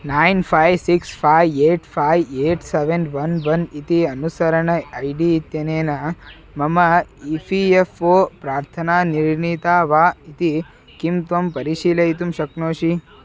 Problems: constant background noise, continuous background conversations